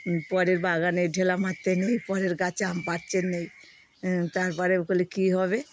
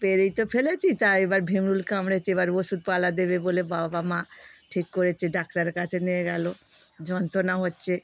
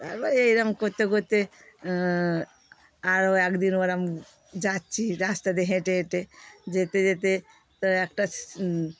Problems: none marked